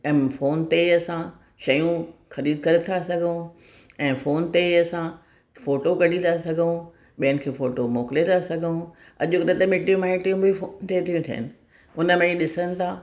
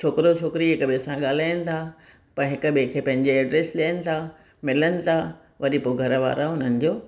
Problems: none marked